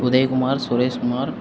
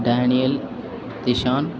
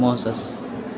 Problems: constant background noise